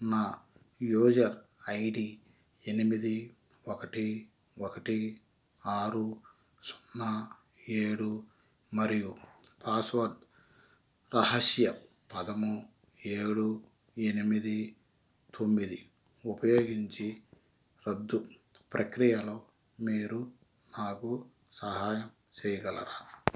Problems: none marked